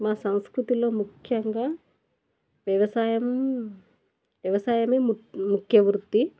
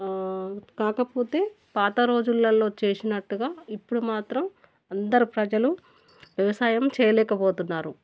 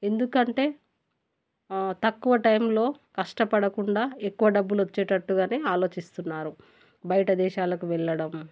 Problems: none marked